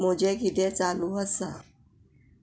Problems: none marked